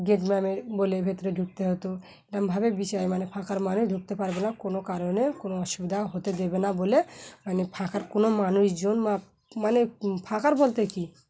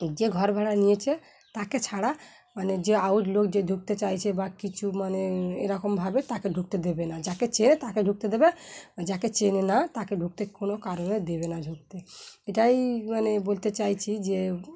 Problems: constant background noise